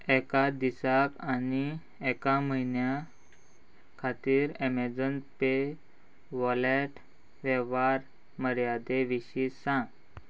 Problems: constant background noise